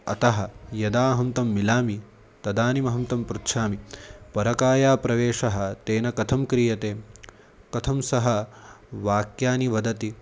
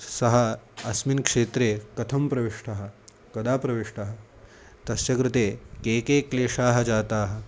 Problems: none marked